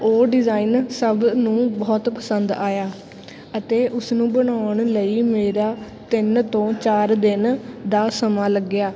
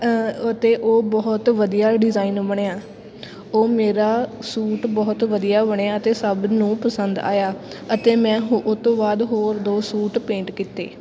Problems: constant background noise, background conversations at intervals